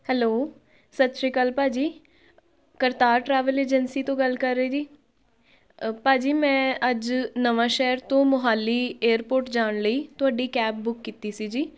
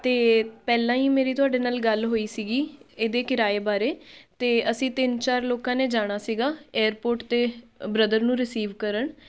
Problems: background sounds at intervals, background conversations at intervals